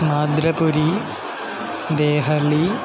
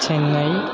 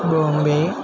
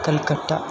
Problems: constant background noise